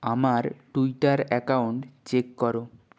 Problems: none marked